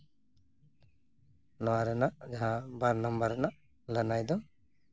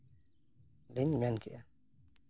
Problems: background sounds at intervals